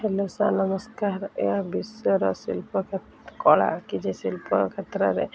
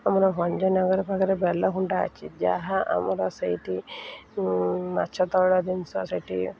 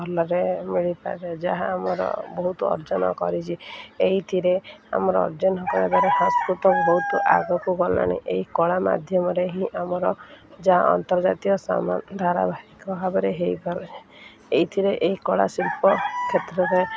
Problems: none marked